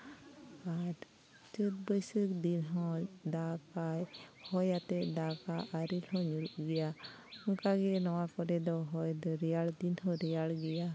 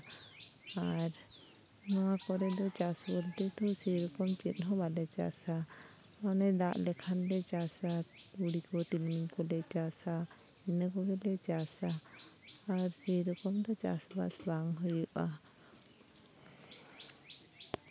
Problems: constant background noise, continuous background conversations